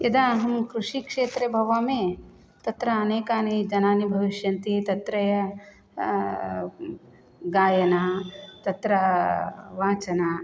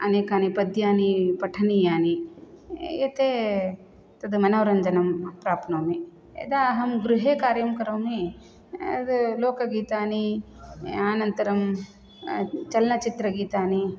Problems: none marked